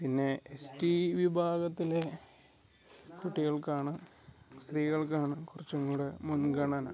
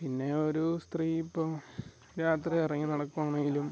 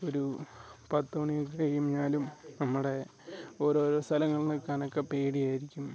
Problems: background sounds at intervals, low volume